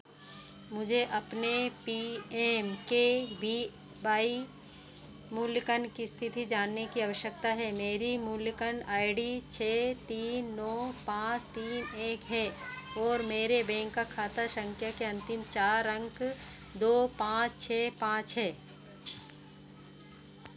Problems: constant background noise